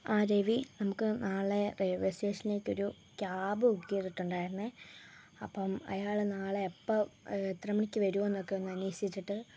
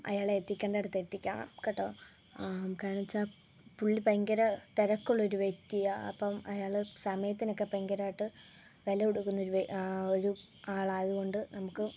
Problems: low volume